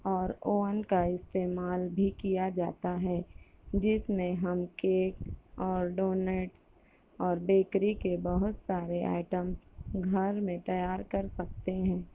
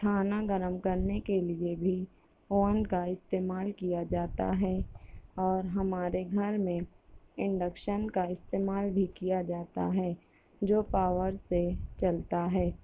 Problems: none marked